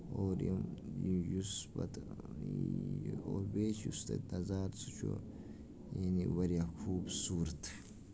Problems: background sounds at intervals, low volume